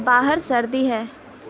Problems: constant background noise